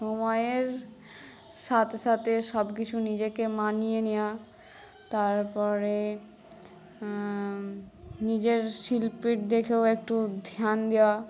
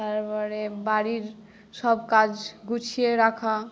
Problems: background conversations at intervals